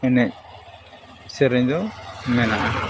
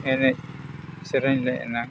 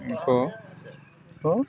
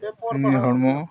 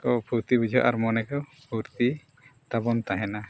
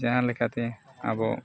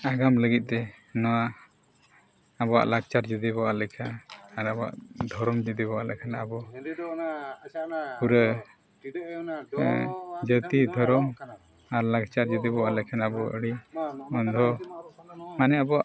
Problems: background sounds at intervals, continuous background conversations